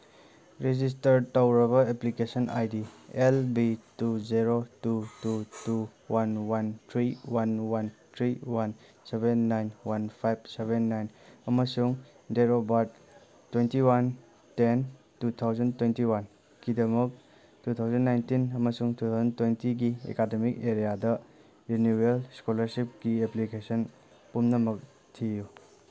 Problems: background sounds at intervals